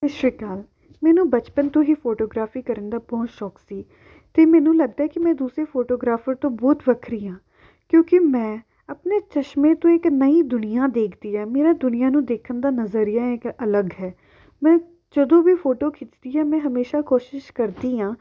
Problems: background sounds at intervals